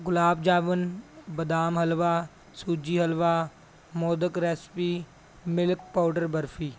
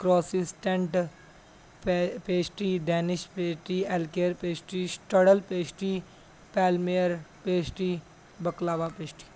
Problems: background sounds at intervals